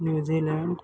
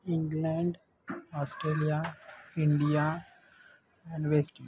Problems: constant background noise, background conversations at intervals, low volume